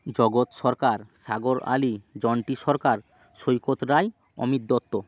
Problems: none marked